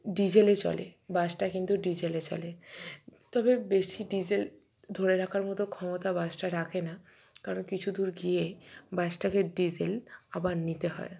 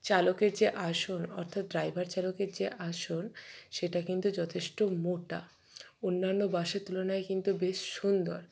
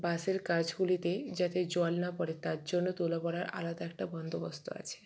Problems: none marked